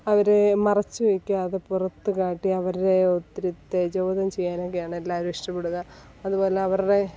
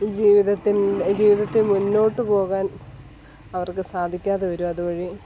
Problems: background sounds at intervals, background conversations at intervals